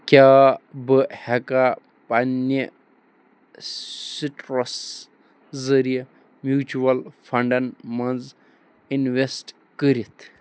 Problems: none marked